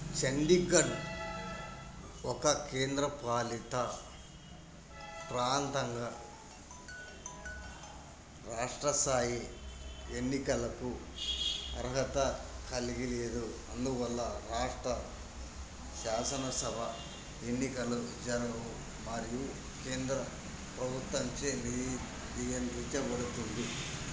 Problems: constant background noise